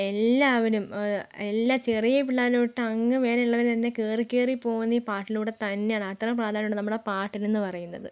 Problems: low volume